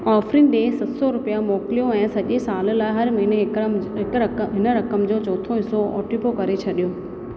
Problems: constant background noise, echo